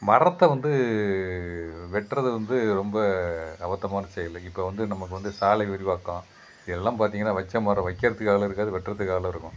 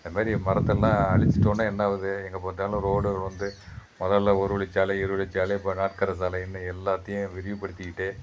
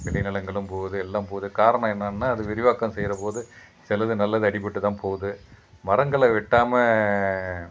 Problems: background sounds at intervals